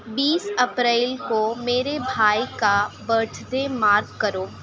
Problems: none marked